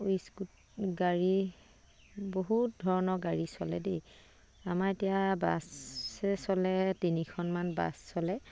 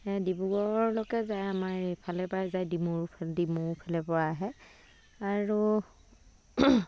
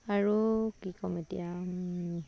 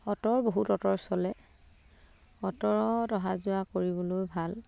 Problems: none marked